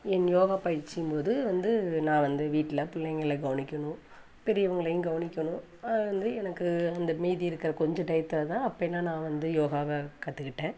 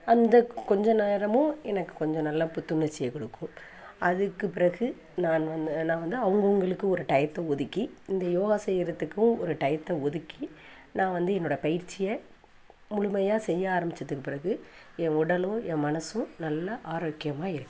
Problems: none marked